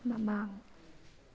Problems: background sounds at intervals